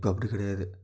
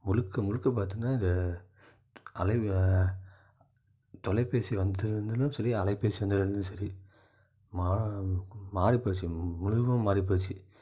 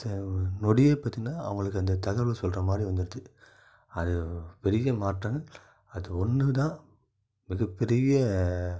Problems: none marked